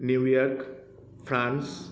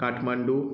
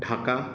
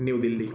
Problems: constant background noise